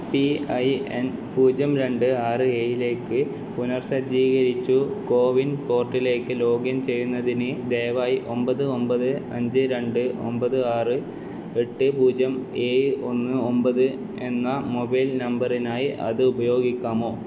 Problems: background sounds at intervals, echo, low volume